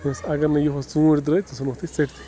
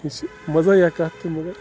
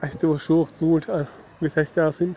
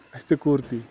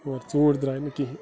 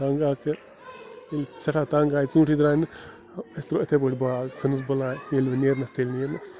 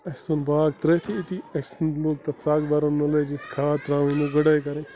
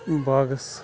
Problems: constant background noise